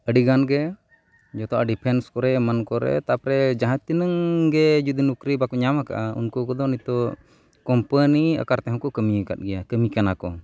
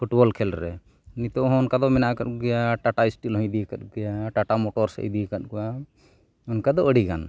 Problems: background sounds at intervals